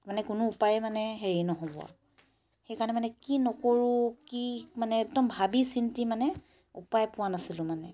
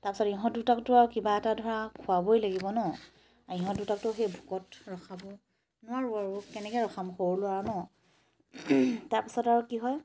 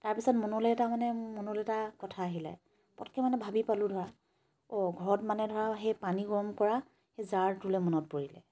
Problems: none marked